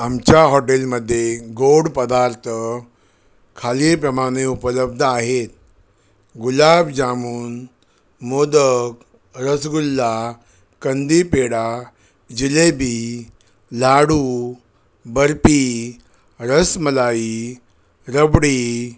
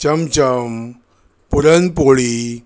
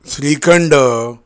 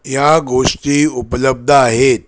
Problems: none marked